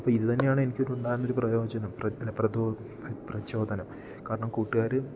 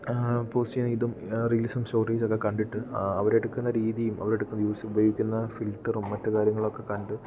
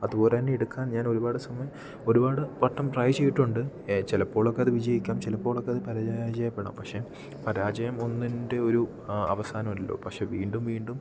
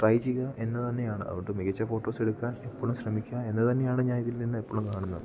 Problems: low volume